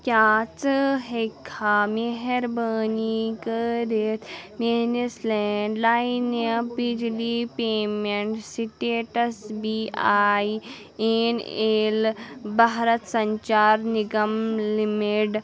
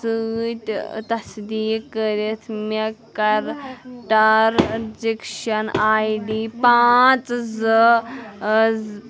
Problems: background sounds at intervals, background conversations at intervals